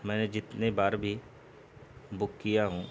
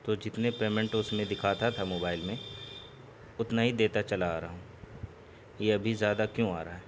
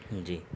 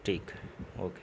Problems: constant background noise, low volume